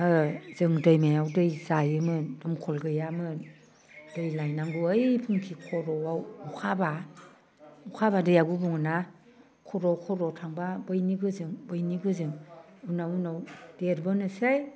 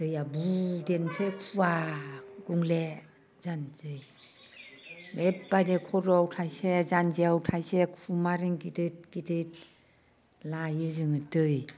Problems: constant background noise